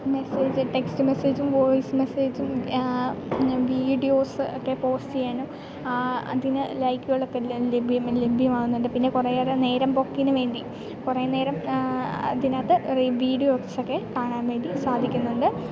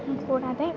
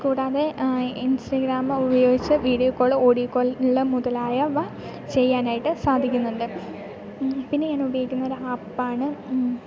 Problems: background sounds at intervals